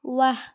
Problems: none marked